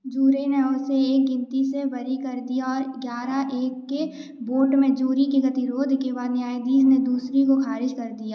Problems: background sounds at intervals